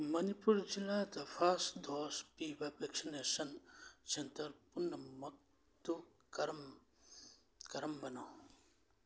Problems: none marked